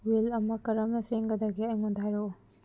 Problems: low volume